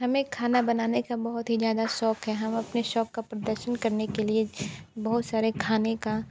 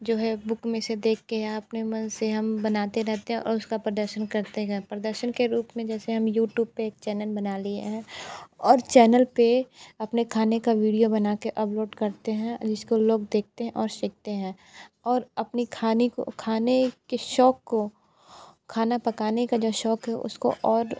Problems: constant background noise